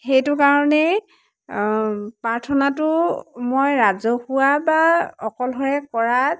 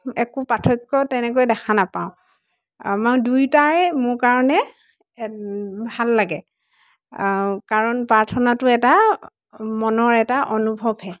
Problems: constant background noise, background conversations at intervals